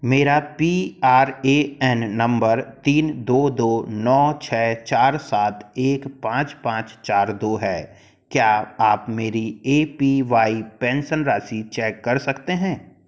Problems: background sounds at intervals